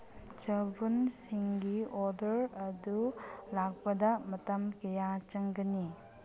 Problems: low volume